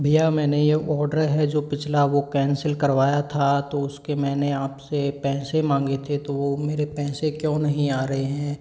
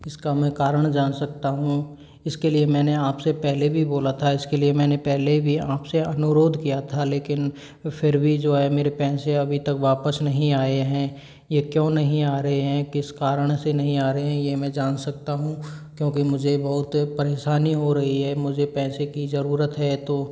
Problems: low volume